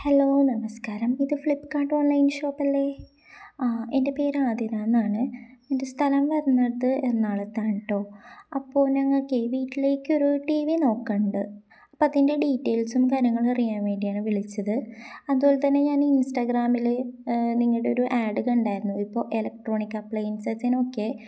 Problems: none marked